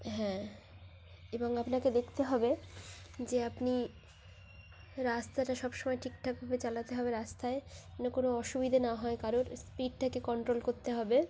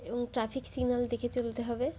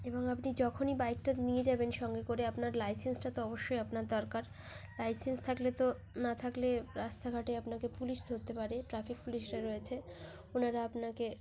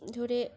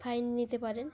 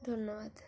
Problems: background sounds at intervals